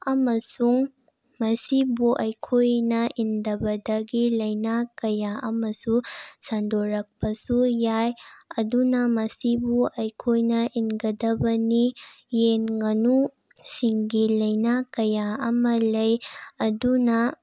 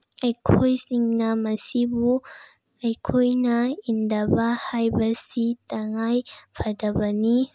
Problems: none marked